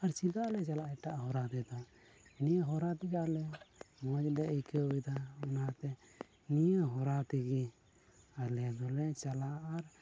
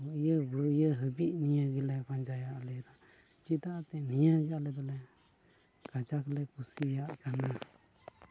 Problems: constant background noise, low volume